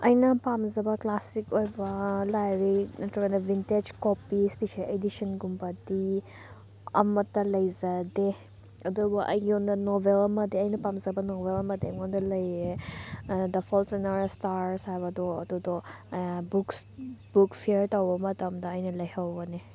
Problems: none marked